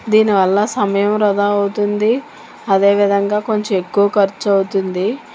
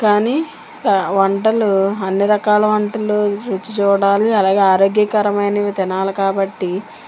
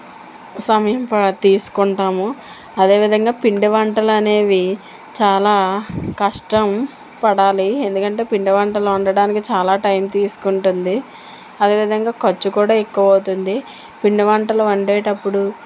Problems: constant background noise